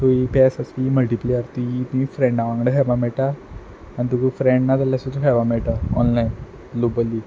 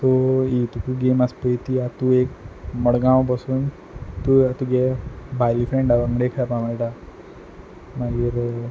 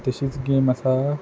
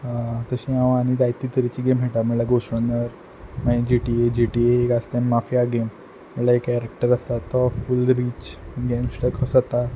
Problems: background sounds at intervals